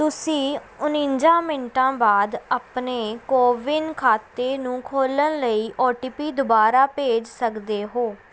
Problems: background sounds at intervals